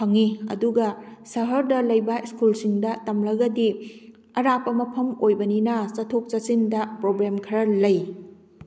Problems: none marked